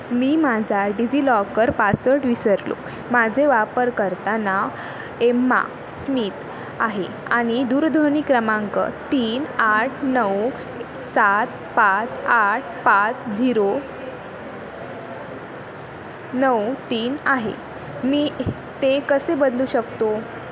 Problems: constant background noise